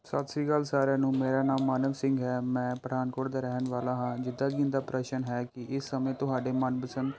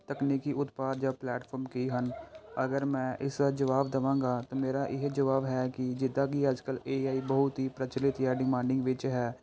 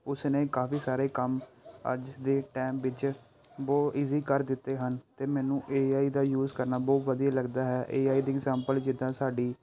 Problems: none marked